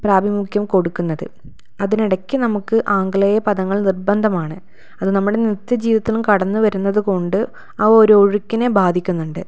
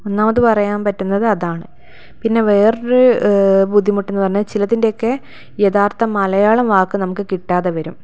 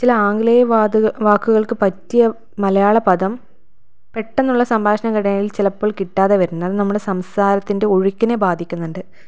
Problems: none marked